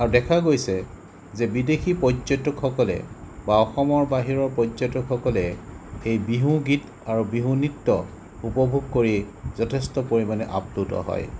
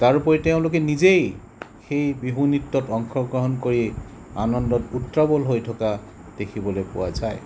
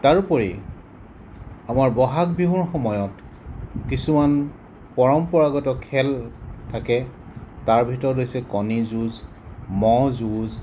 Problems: none marked